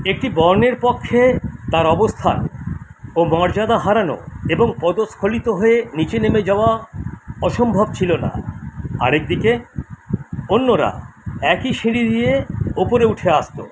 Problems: constant background noise